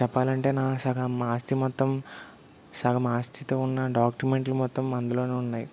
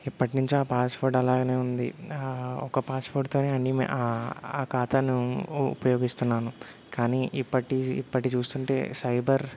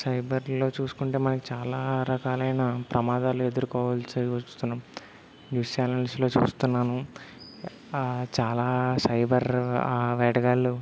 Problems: background sounds at intervals